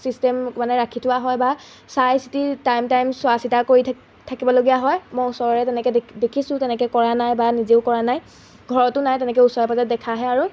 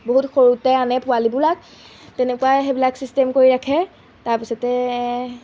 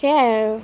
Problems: none marked